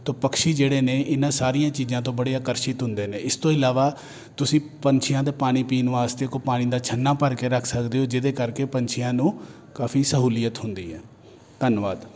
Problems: none marked